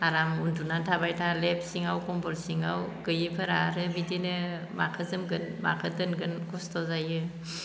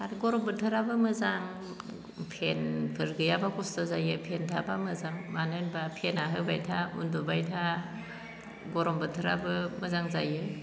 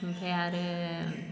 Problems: low volume